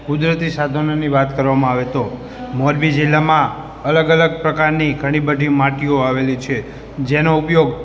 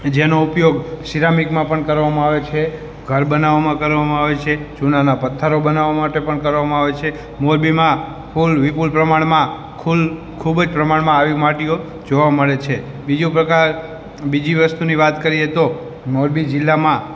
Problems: background conversations at intervals